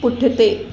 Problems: constant background noise, echo